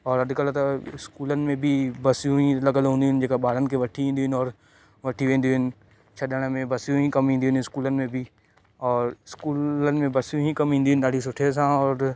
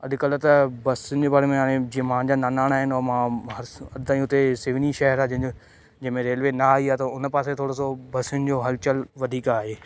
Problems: constant background noise